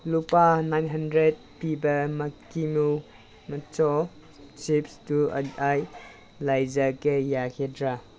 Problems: background sounds at intervals